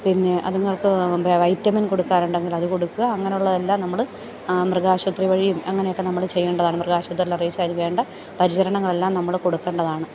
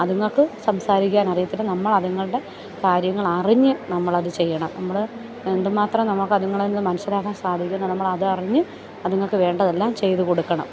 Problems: none marked